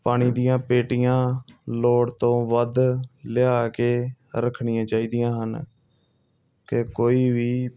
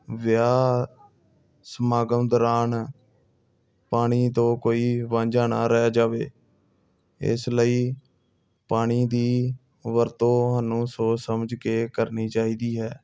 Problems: background sounds at intervals